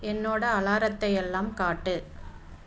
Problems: none marked